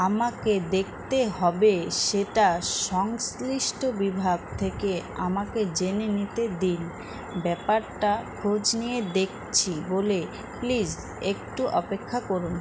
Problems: constant background noise